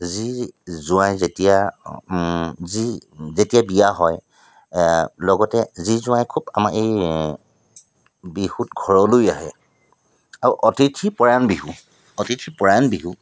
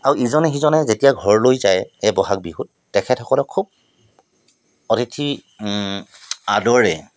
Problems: constant background noise